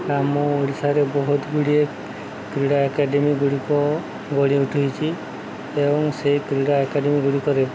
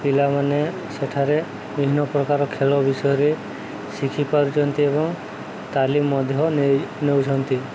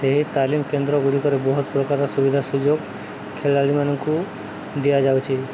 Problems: constant background noise